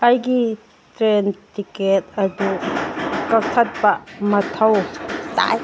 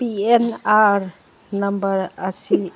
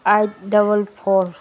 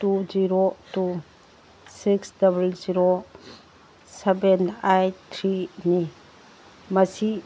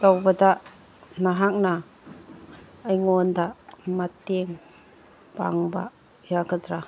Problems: background sounds at intervals, background conversations at intervals